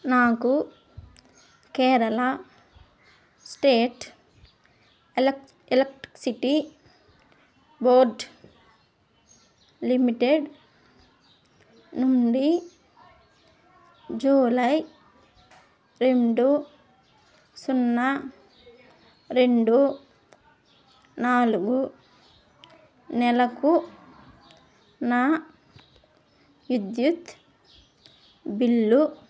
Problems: constant background noise